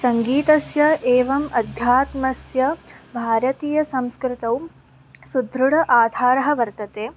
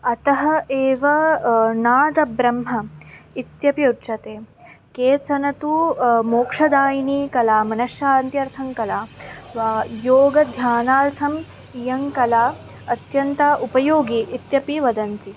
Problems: background sounds at intervals